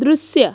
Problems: background sounds at intervals